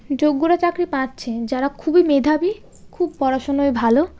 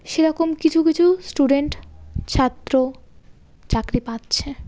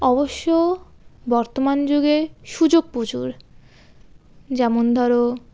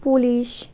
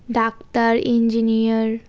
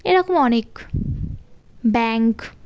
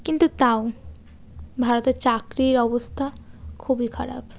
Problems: none marked